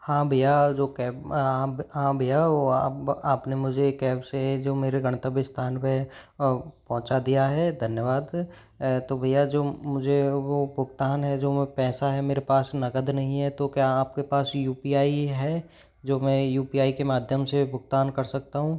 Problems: background conversations at intervals